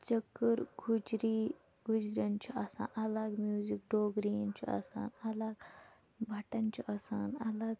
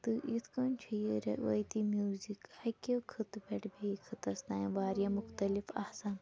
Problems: low volume